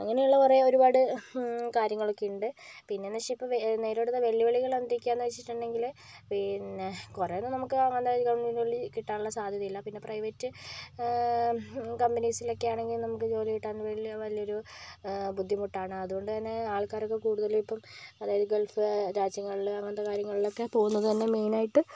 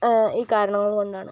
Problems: none marked